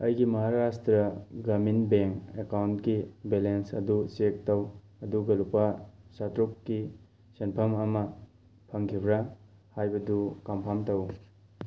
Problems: background sounds at intervals